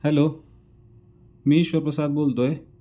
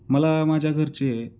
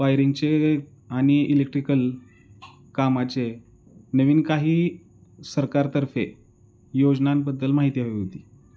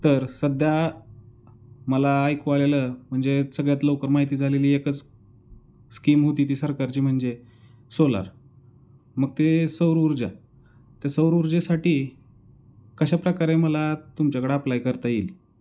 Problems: background sounds at intervals, background conversations at intervals